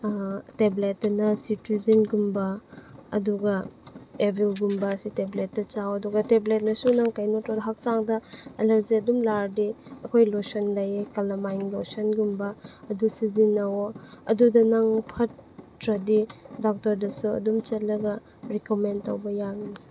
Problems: constant background noise